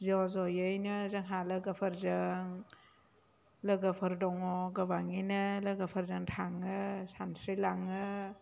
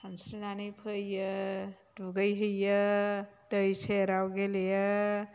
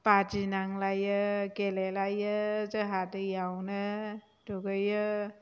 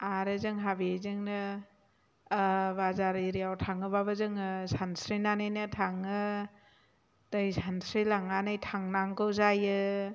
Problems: low volume